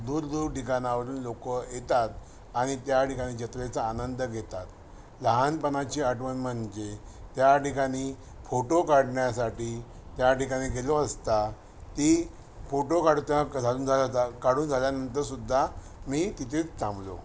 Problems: none marked